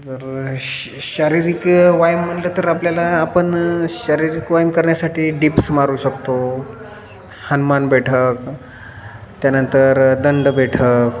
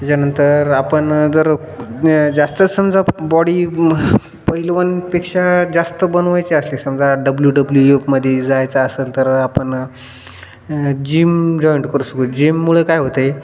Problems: constant background noise